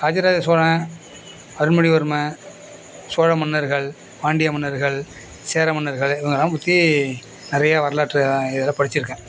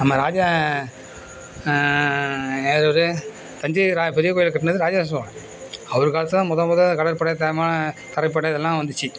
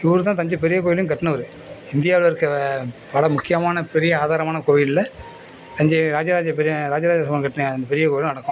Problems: constant background noise, background conversations at intervals